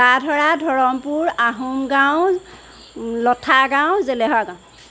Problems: none marked